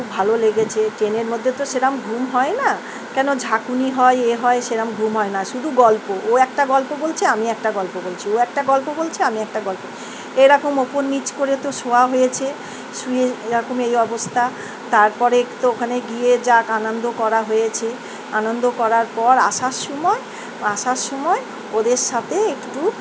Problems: none marked